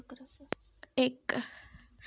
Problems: background sounds at intervals